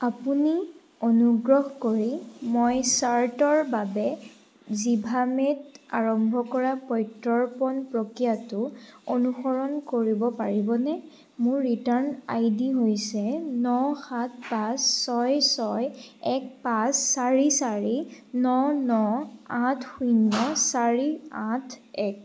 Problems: none marked